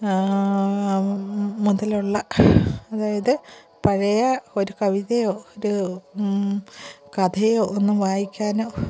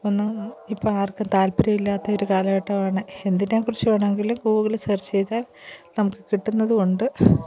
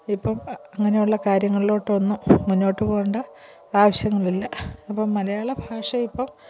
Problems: background sounds at intervals, low volume